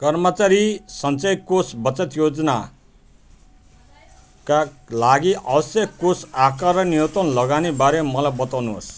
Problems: continuous background conversations